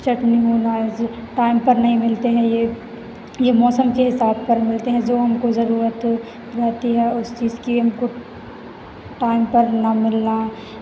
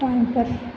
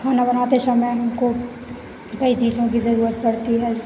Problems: constant background noise